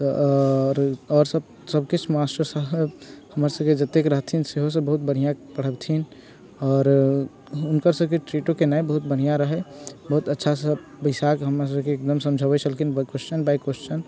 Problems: none marked